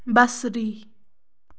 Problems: background sounds at intervals